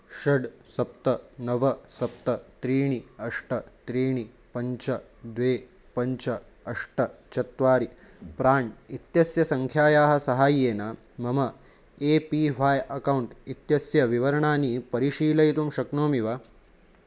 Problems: none marked